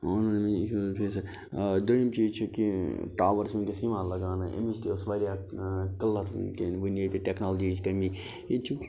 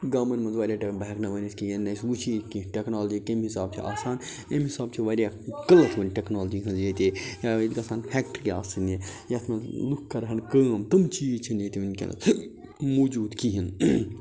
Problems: none marked